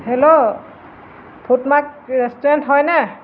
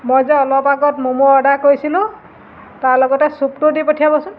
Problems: constant background noise